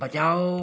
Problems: none marked